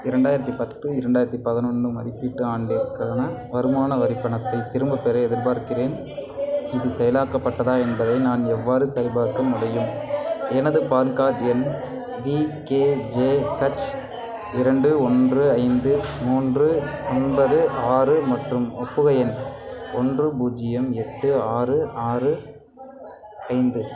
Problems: continuous background conversations